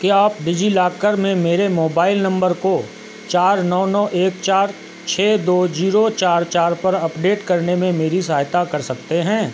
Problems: constant background noise